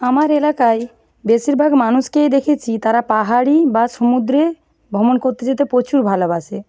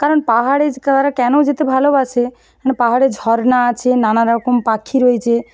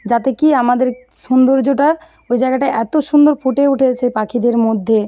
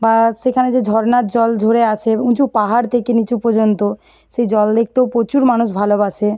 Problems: background sounds at intervals